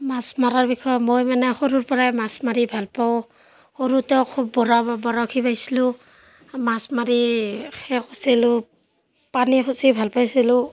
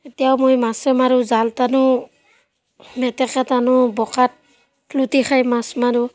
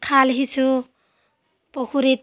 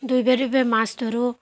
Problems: background sounds at intervals, background conversations at intervals